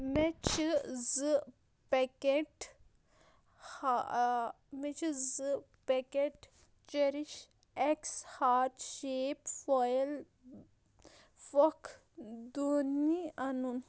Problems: constant background noise